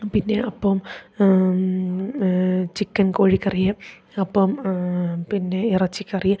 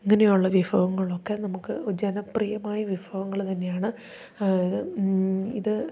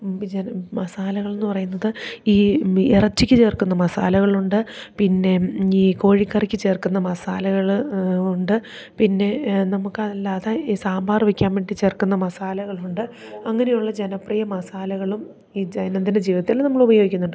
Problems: none marked